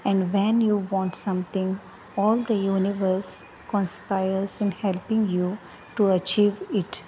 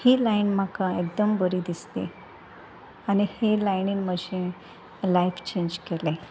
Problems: constant background noise